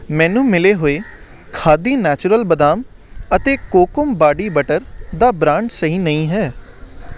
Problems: none marked